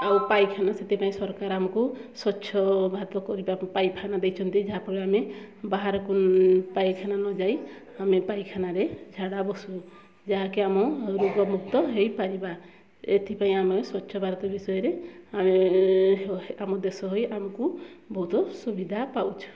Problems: background sounds at intervals, low volume